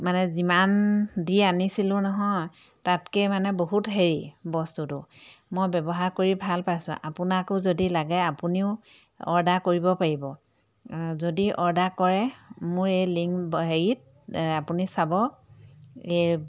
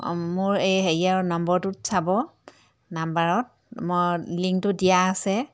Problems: background sounds at intervals